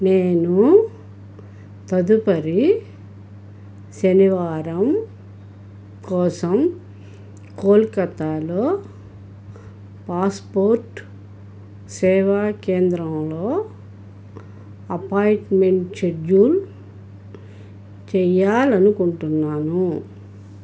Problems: none marked